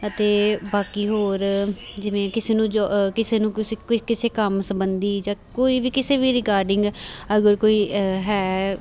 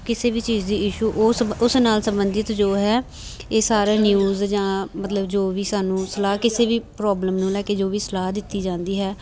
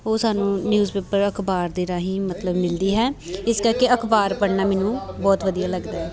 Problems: background conversations at intervals